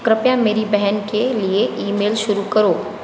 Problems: none marked